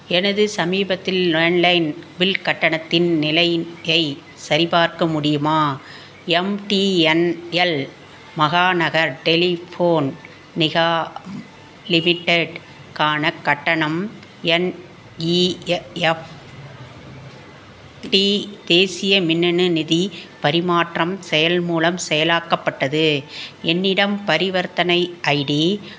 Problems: none marked